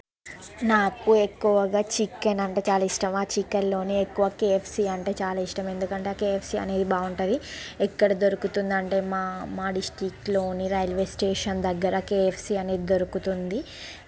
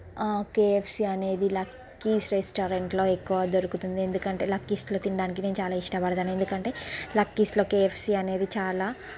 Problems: constant background noise, background conversations at intervals